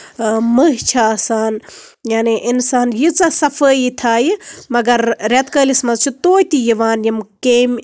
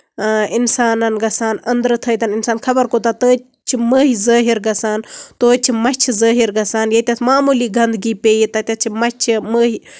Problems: none marked